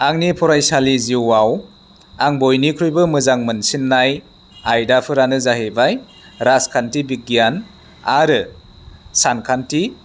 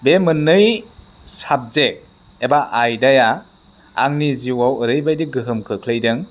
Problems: none marked